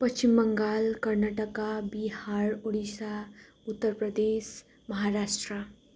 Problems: none marked